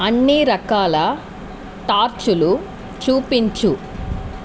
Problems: constant background noise